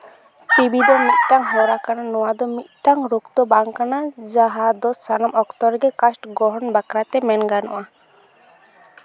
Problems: none marked